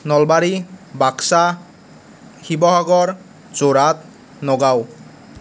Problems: none marked